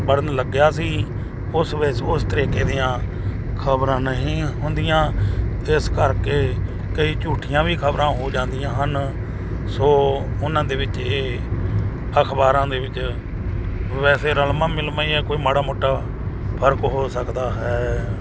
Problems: background sounds at intervals